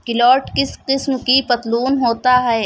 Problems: none marked